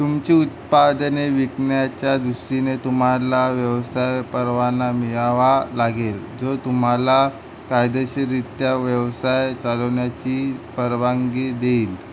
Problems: none marked